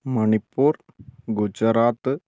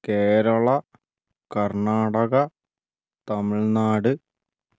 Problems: none marked